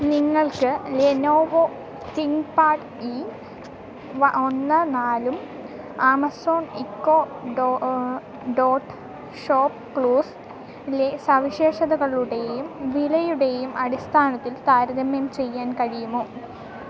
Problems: none marked